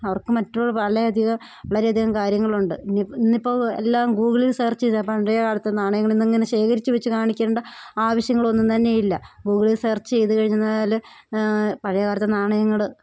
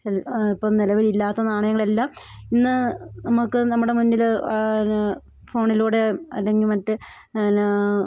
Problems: none marked